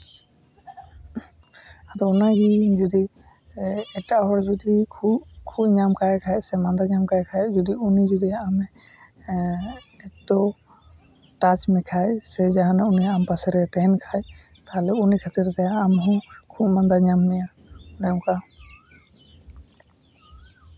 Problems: background sounds at intervals